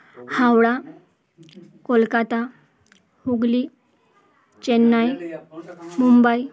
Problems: constant background noise, background conversations at intervals